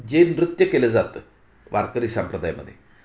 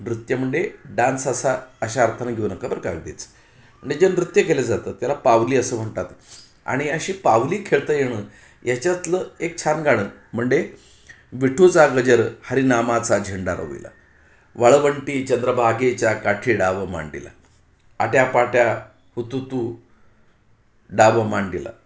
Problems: background sounds at intervals